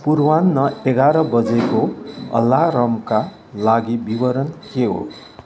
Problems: constant background noise